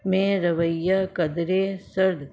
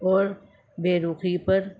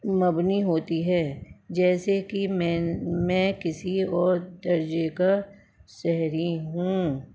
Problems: constant background noise